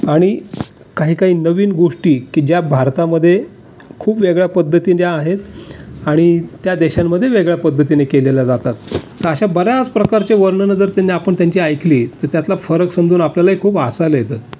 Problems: constant background noise